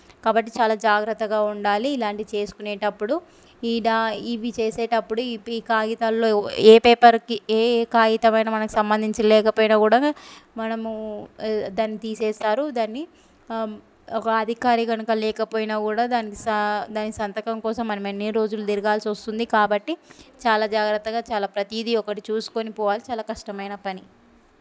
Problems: none marked